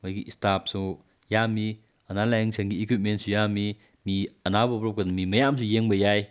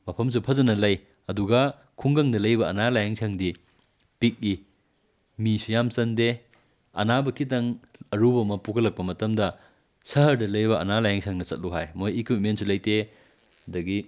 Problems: background sounds at intervals